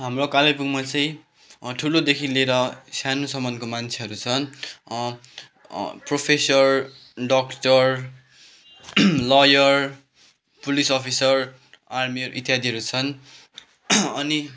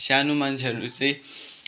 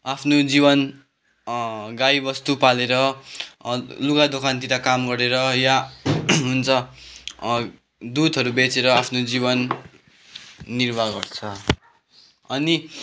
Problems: background sounds at intervals, background conversations at intervals